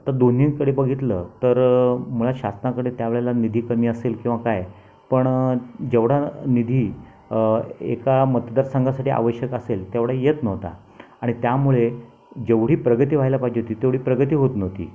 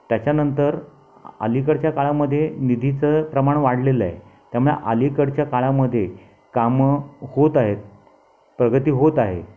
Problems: background sounds at intervals, background conversations at intervals